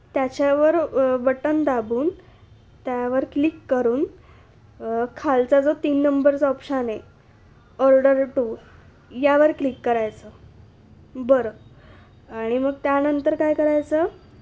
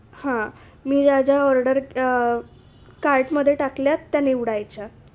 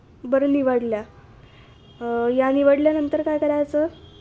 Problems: constant background noise, background conversations at intervals